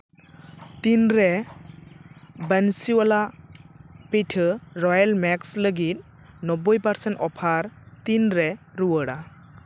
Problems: constant background noise